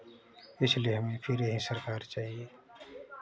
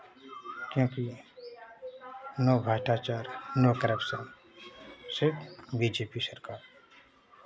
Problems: constant background noise, continuous background conversations